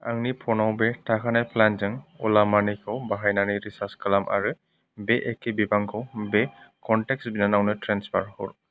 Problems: background sounds at intervals